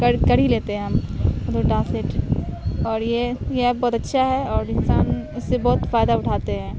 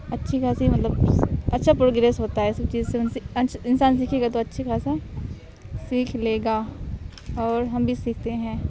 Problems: background sounds at intervals, background conversations at intervals